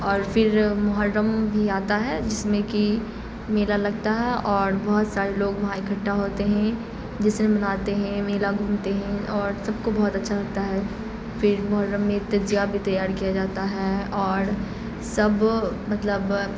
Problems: constant background noise